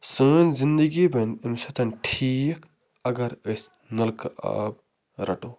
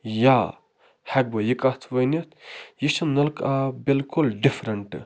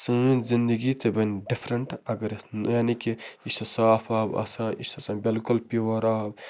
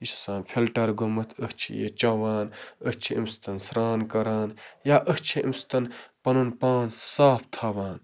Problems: constant background noise